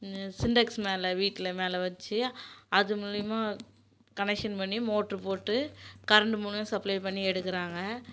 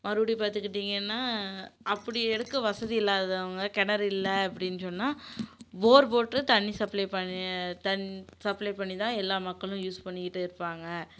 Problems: none marked